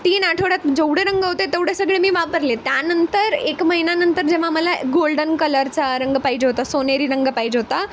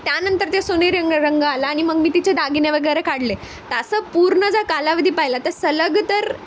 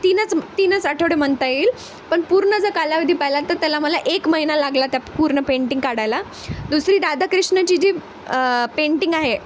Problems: constant background noise